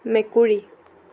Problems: none marked